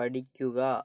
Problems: low volume